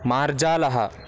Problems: none marked